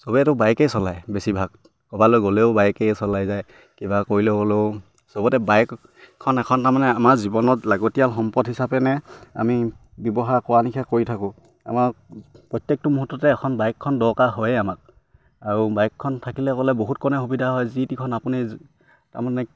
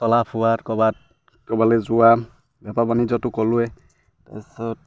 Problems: none marked